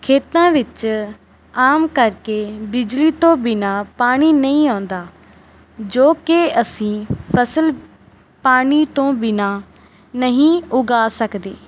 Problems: none marked